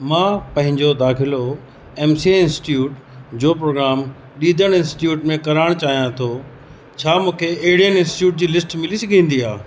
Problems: constant background noise